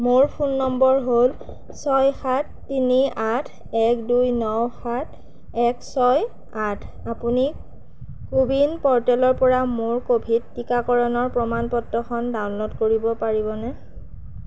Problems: none marked